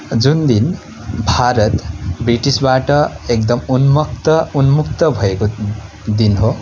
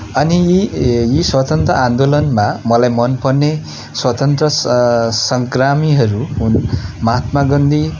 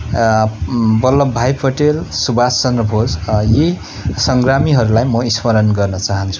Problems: constant background noise